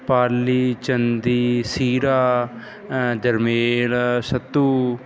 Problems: background sounds at intervals